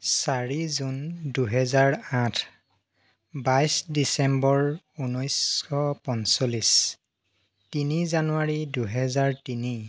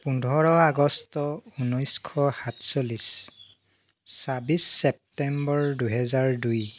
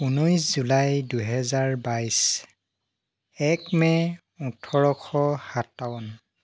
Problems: background sounds at intervals